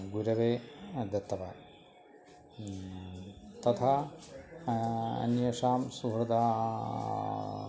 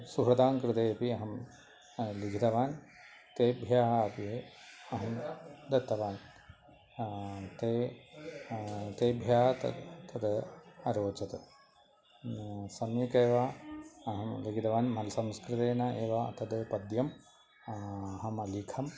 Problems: none marked